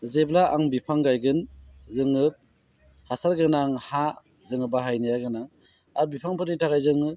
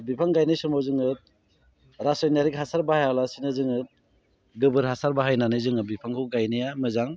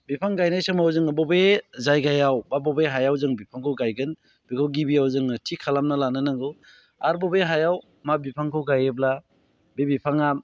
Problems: constant background noise